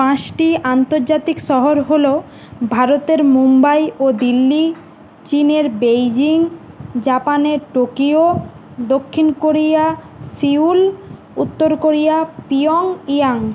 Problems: constant background noise